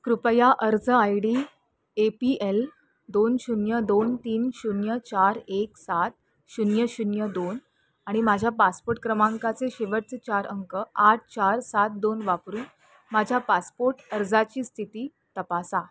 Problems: constant background noise, continuous background conversations